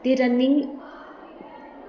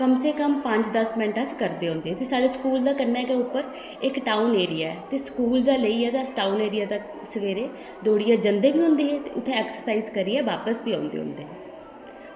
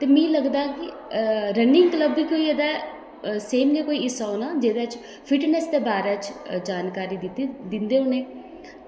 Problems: background sounds at intervals, echo